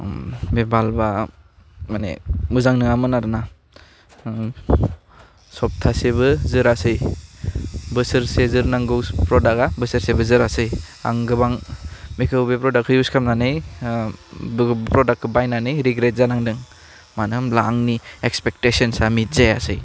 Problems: low volume